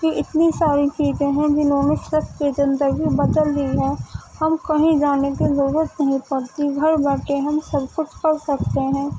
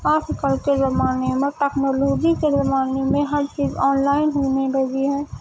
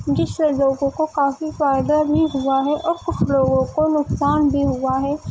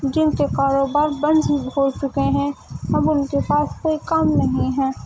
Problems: constant background noise